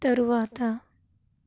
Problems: none marked